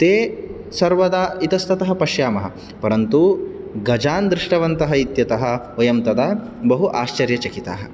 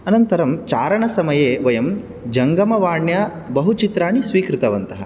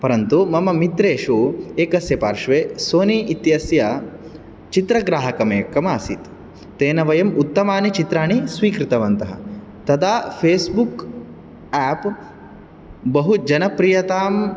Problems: none marked